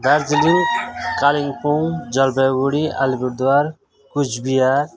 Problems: none marked